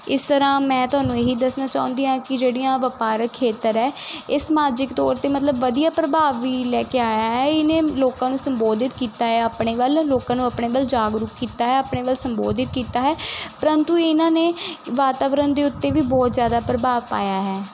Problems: constant background noise